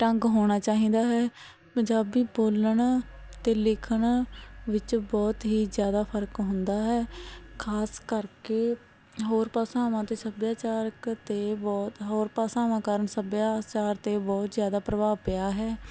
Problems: background sounds at intervals